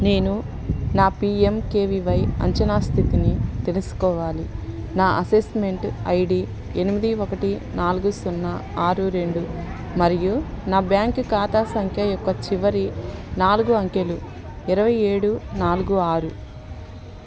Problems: constant background noise, background conversations at intervals